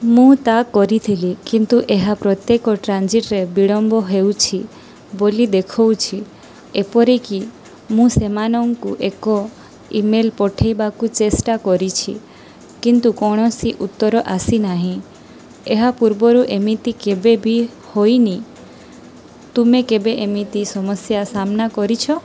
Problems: constant background noise